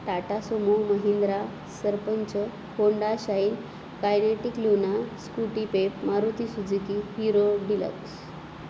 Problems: constant background noise